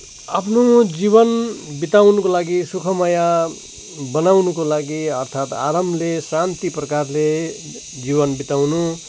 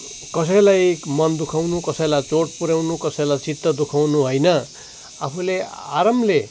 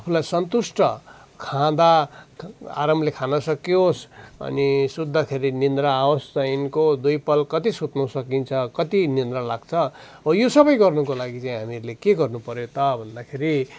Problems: none marked